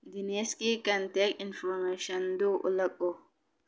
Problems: low volume